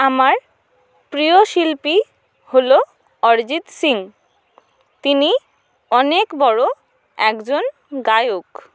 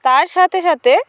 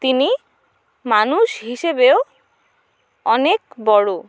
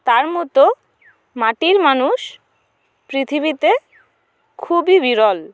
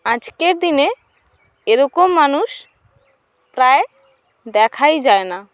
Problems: none marked